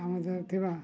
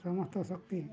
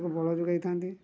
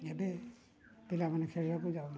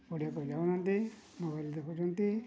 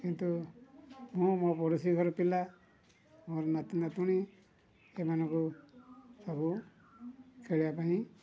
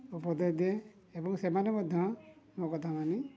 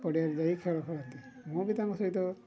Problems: low volume